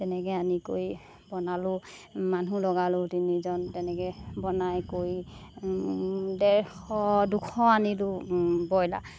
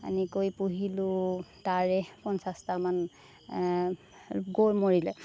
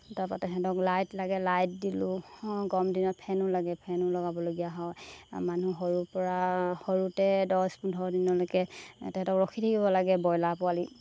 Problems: constant background noise